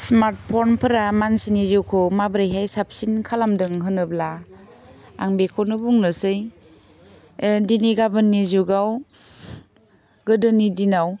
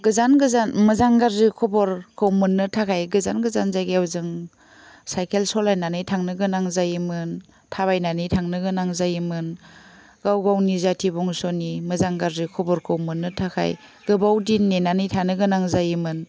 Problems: none marked